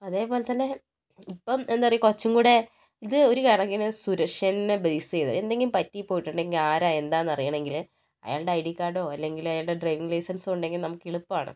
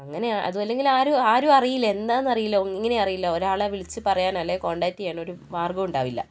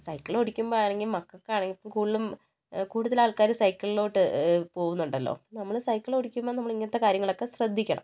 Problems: low volume